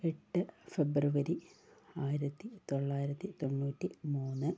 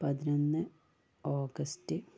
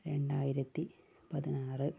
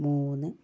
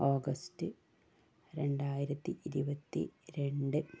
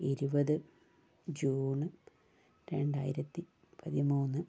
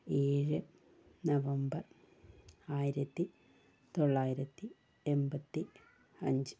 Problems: low volume